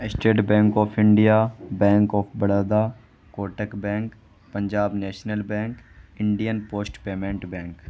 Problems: constant background noise